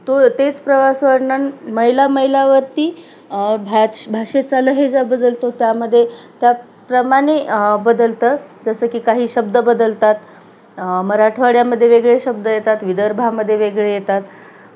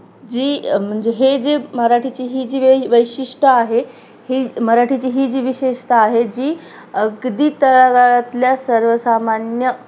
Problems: constant background noise